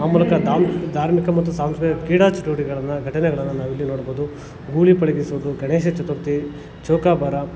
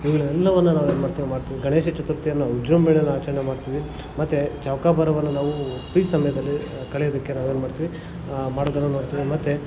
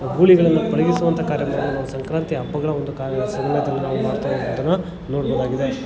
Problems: constant background noise